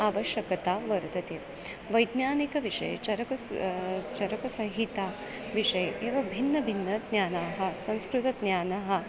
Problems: none marked